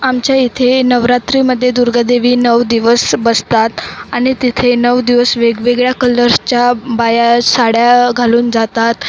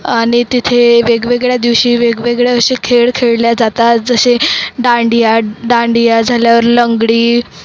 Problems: constant background noise, background conversations at intervals